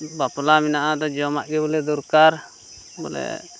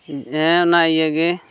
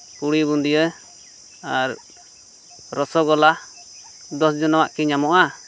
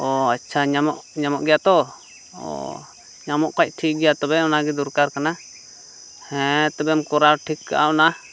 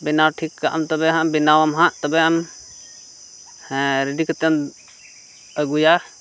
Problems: none marked